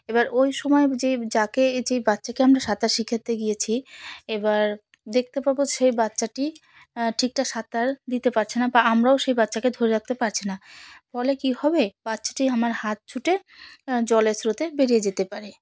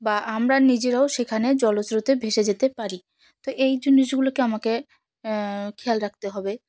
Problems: none marked